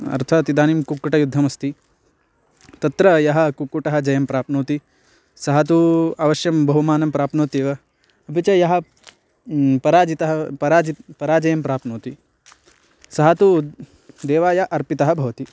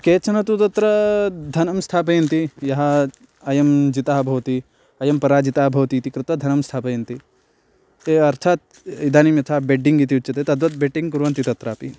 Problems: constant background noise